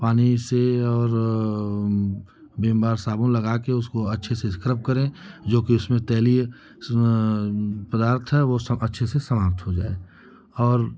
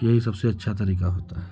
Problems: constant background noise